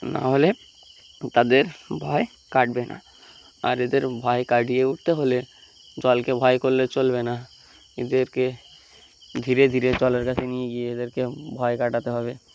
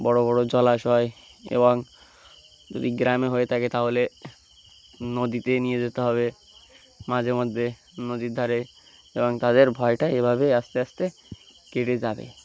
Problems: background sounds at intervals